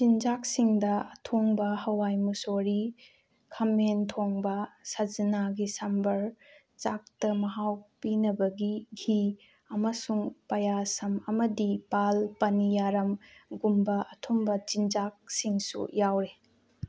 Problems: background sounds at intervals